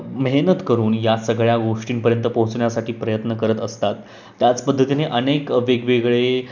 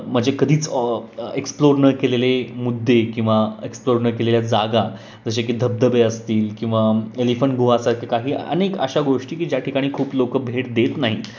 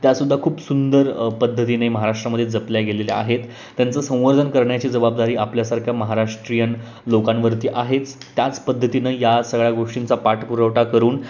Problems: constant background noise, background conversations at intervals